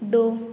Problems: background sounds at intervals